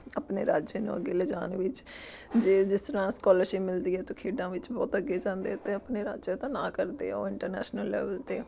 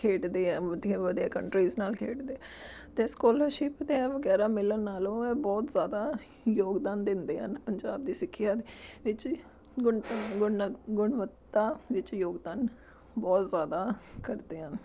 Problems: background sounds at intervals